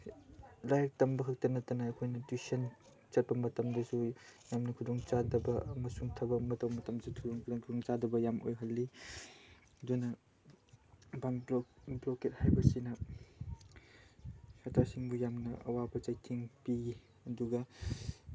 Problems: low volume